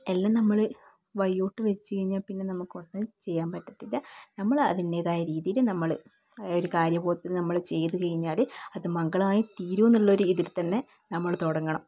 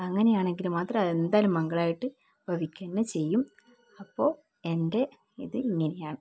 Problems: background sounds at intervals, low volume